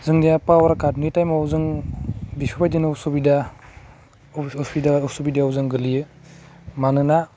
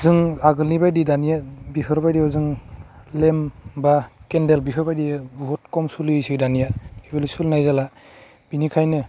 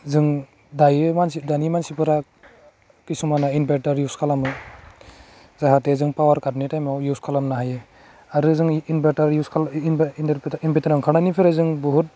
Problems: constant background noise